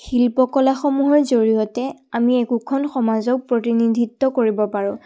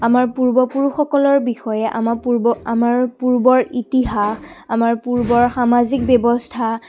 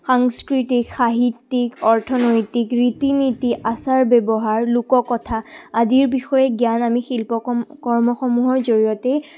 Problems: background sounds at intervals